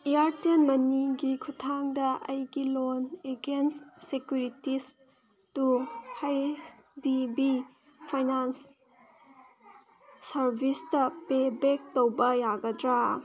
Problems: constant background noise